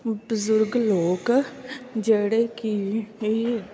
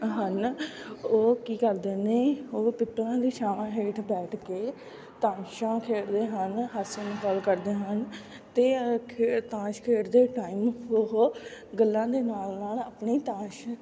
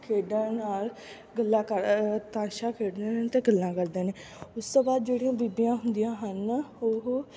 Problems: none marked